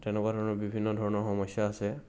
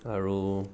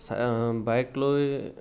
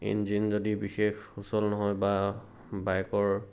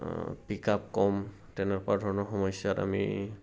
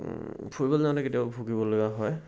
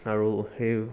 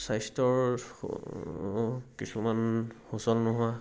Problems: none marked